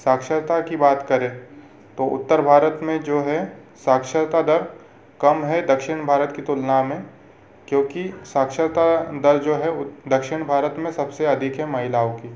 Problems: constant background noise